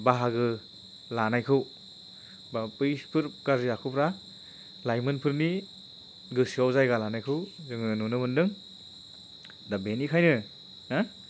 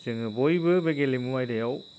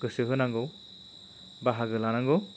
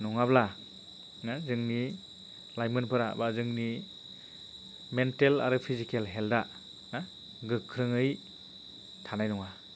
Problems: constant background noise